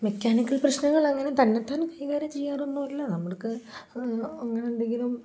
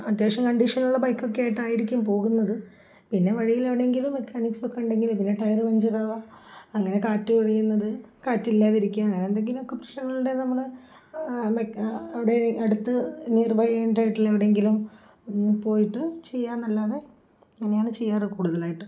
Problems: none marked